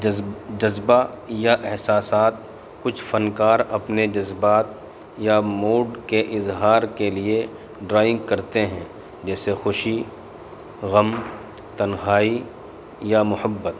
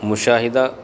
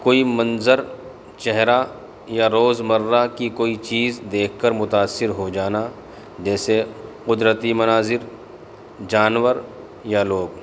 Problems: constant background noise